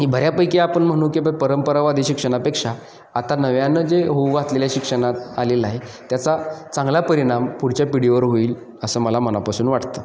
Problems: constant background noise